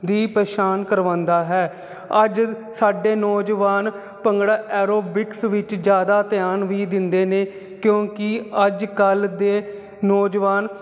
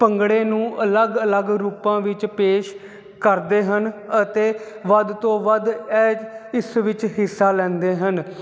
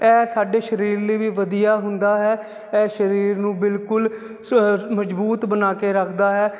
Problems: constant background noise